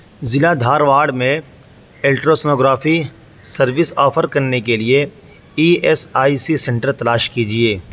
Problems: background sounds at intervals